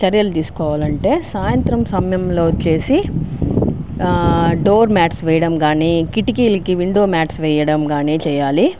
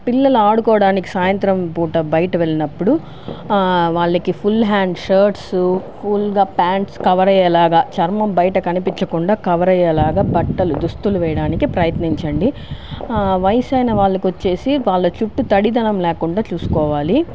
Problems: none marked